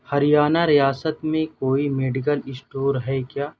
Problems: background sounds at intervals